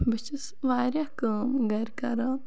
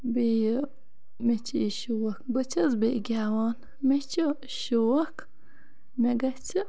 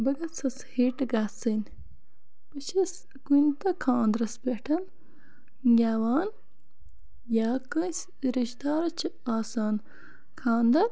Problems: constant background noise